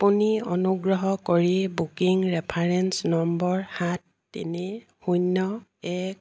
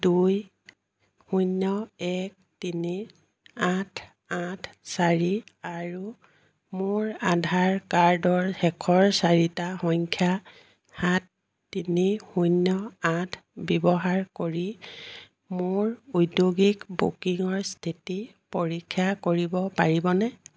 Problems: none marked